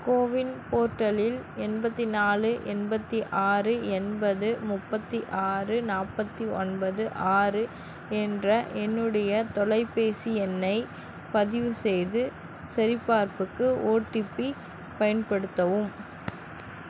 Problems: constant background noise